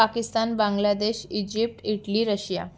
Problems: none marked